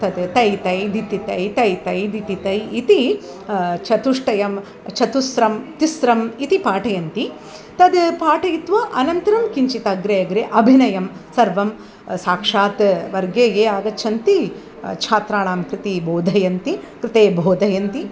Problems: background sounds at intervals